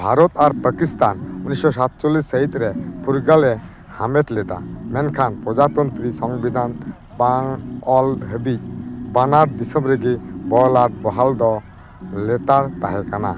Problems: constant background noise